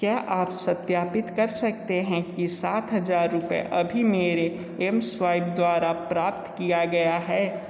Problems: constant background noise